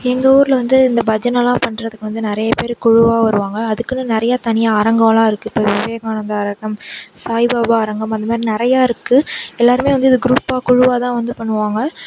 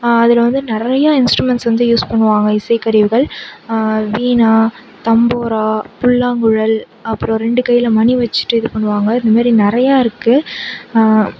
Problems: background sounds at intervals